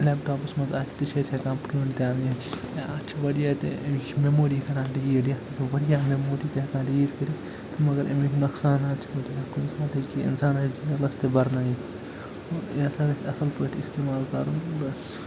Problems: constant background noise